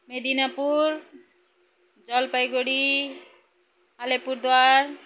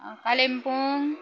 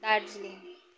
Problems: none marked